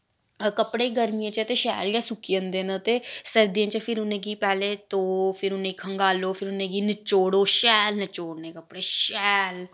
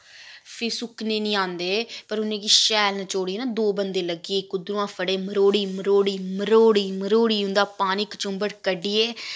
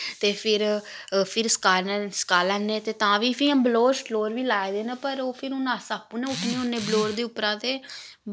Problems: none marked